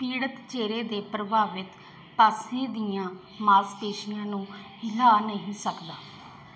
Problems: none marked